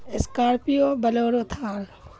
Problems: constant background noise